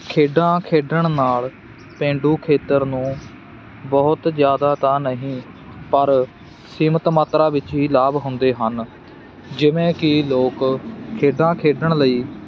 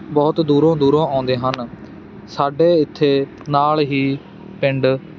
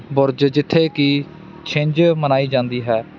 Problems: constant background noise